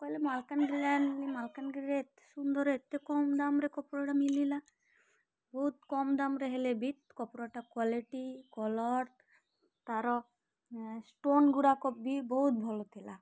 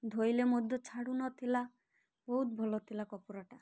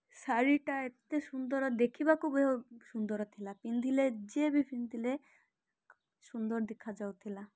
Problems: none marked